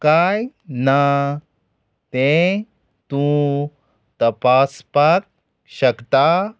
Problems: background sounds at intervals